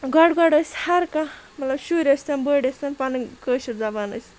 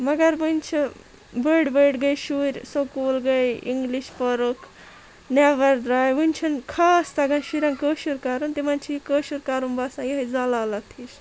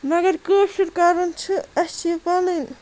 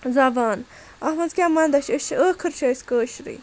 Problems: constant background noise, continuous background conversations